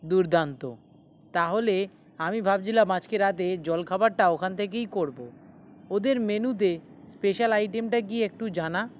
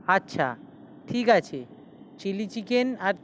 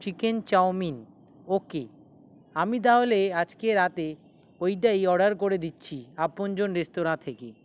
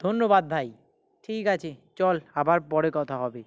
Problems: background sounds at intervals